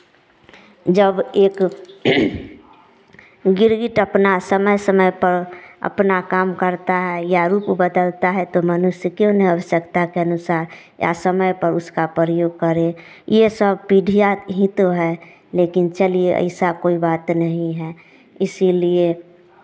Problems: none marked